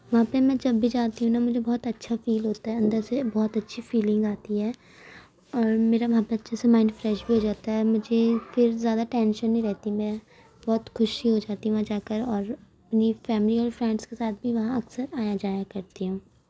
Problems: background sounds at intervals